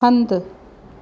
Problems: none marked